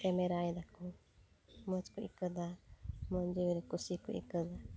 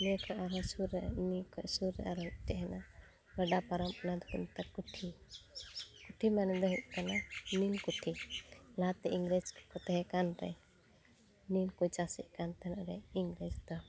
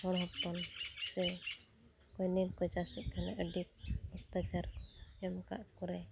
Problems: constant background noise